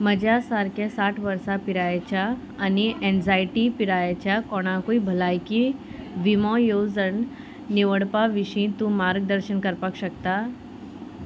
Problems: constant background noise